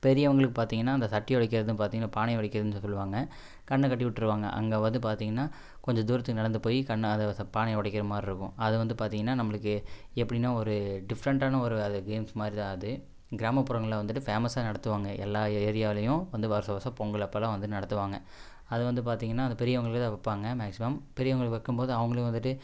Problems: none marked